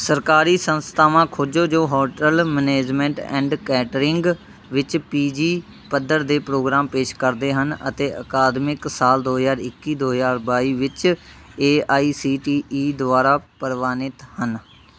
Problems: constant background noise